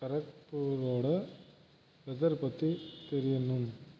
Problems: background sounds at intervals, low volume